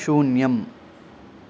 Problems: constant background noise